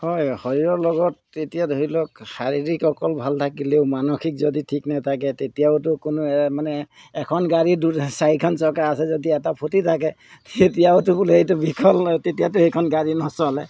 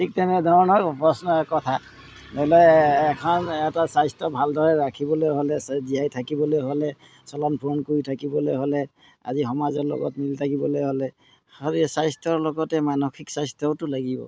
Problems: none marked